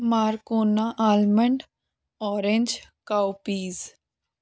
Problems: background sounds at intervals